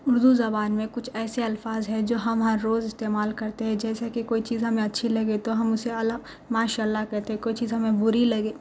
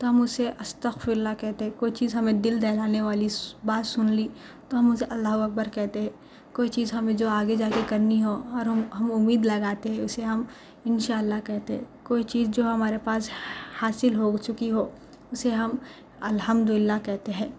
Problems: constant background noise